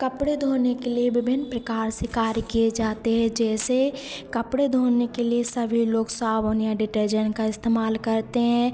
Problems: constant background noise, echo